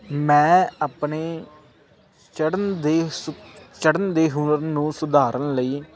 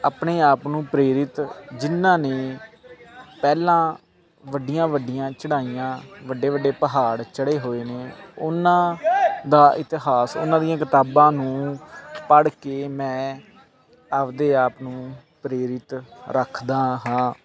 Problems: constant background noise